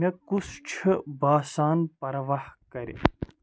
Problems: none marked